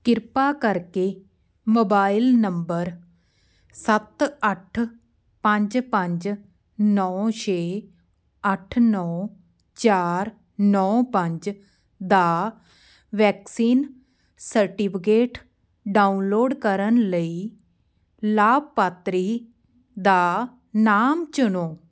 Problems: none marked